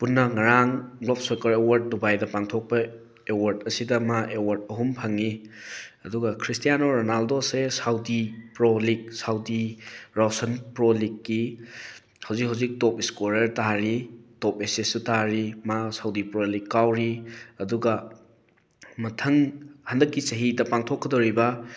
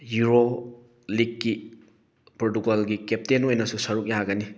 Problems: background sounds at intervals